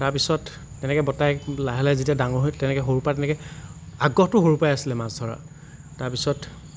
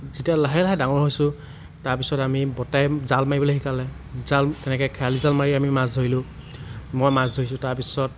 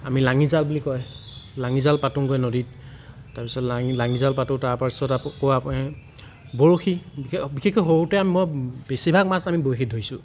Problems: constant background noise